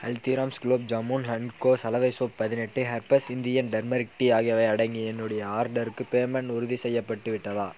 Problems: constant background noise